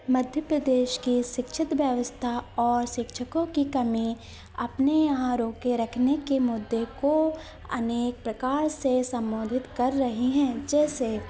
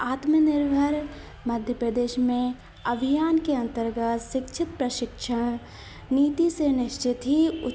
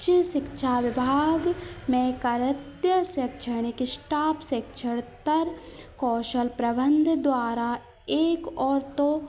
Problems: none marked